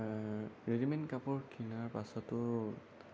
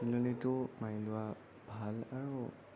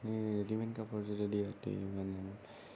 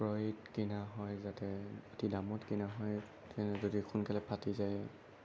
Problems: none marked